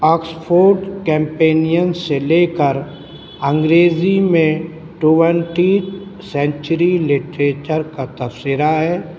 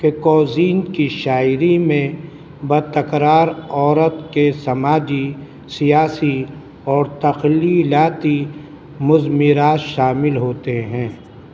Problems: constant background noise